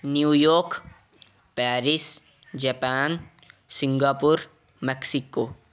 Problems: background sounds at intervals